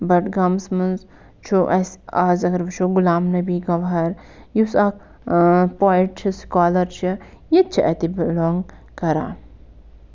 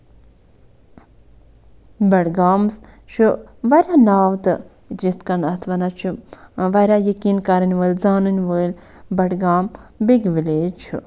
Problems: none marked